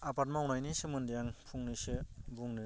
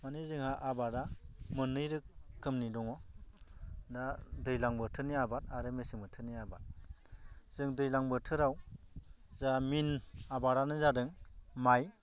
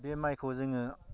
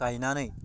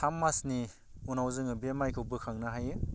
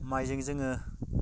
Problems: none marked